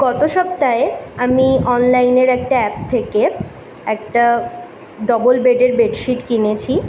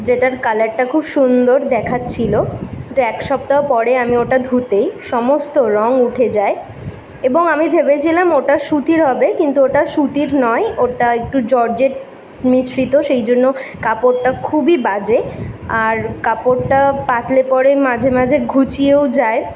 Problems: constant background noise